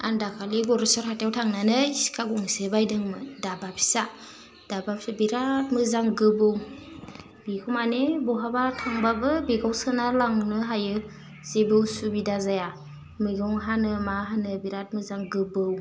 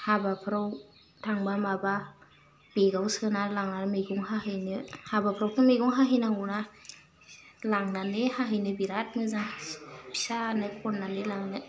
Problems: constant background noise